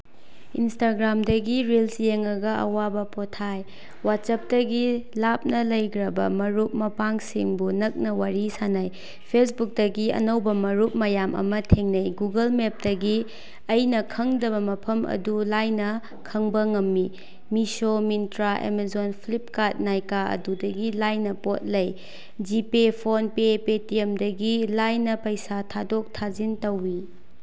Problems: none marked